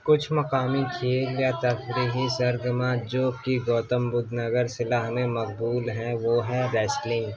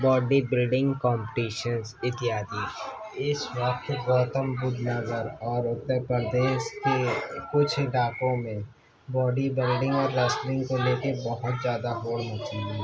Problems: constant background noise, continuous background conversations